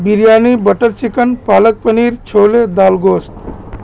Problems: constant background noise